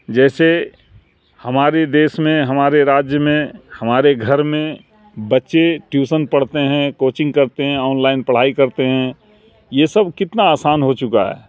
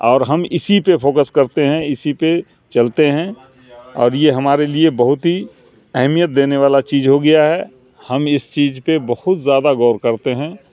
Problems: background sounds at intervals